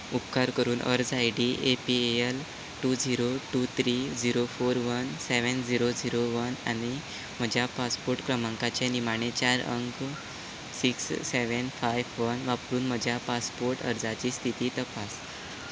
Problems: background sounds at intervals